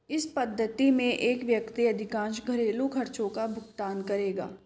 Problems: none marked